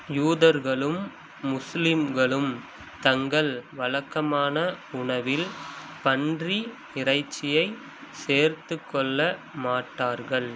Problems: none marked